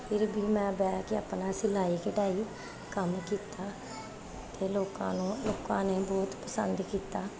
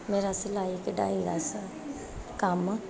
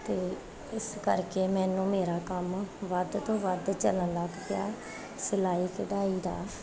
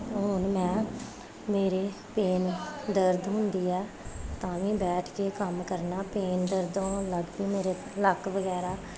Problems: background sounds at intervals